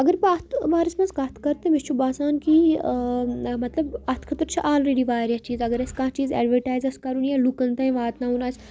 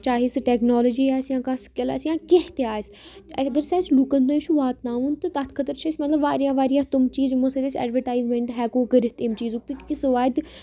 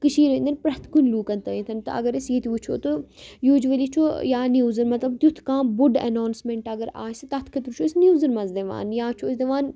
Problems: continuous background conversations